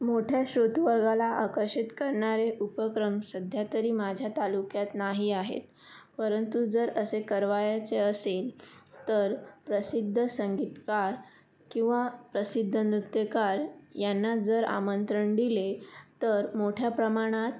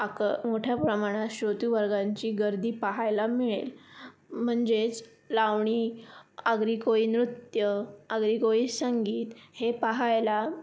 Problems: background sounds at intervals